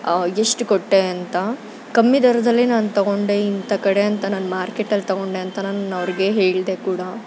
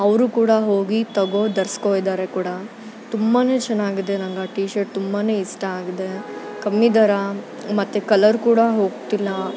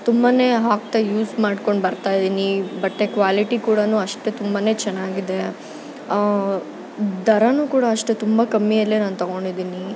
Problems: constant background noise